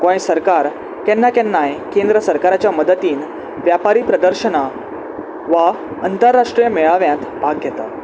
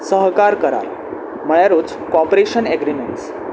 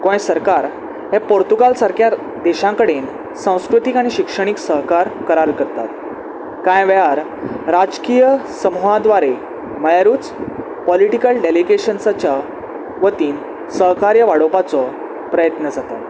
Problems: constant background noise